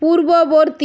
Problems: constant background noise